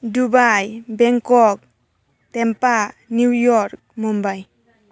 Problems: constant background noise